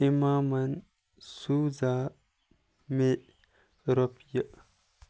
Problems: none marked